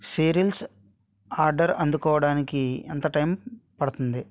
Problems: none marked